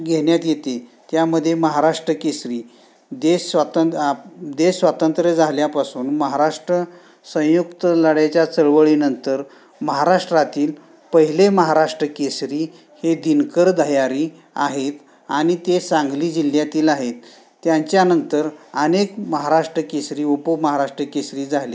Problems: background sounds at intervals